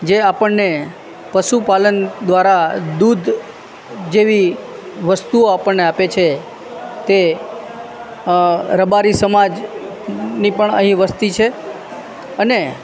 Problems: constant background noise